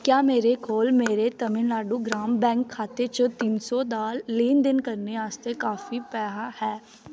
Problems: constant background noise